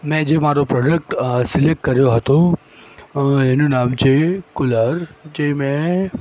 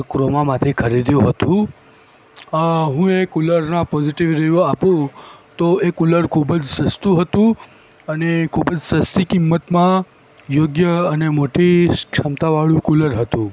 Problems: background sounds at intervals